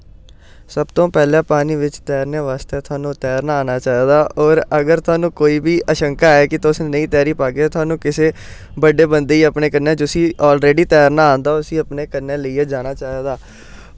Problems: none marked